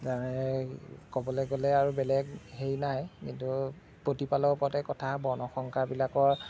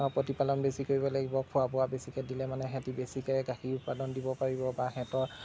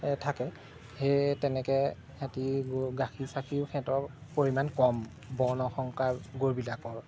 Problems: background sounds at intervals